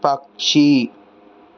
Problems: constant background noise